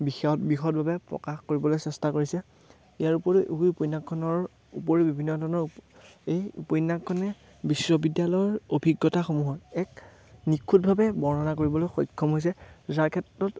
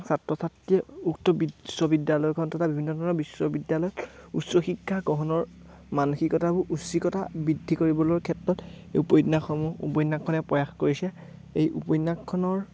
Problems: none marked